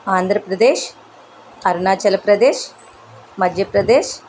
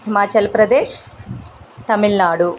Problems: none marked